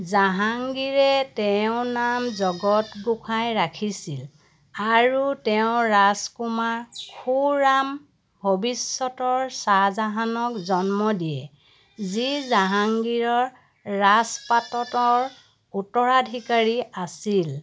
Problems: background sounds at intervals